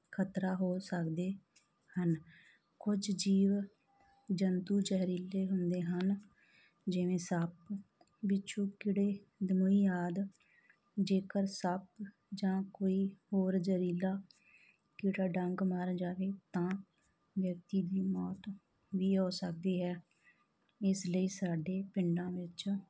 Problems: background sounds at intervals